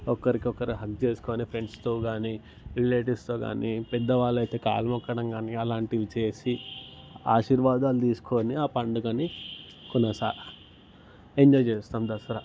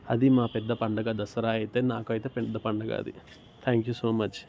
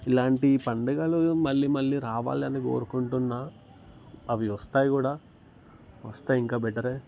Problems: background sounds at intervals